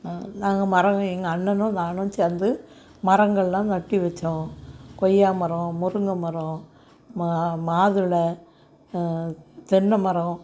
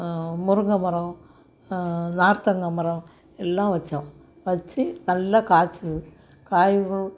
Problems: none marked